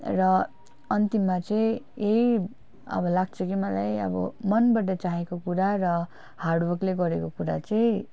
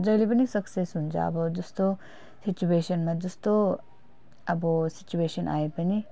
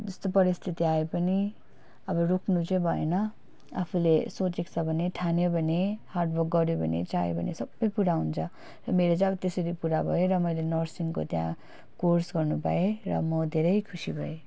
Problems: none marked